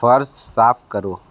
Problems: constant background noise